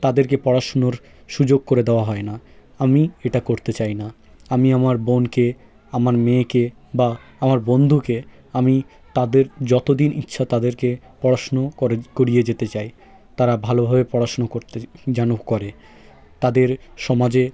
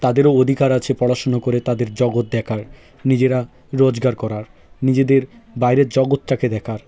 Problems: continuous background conversations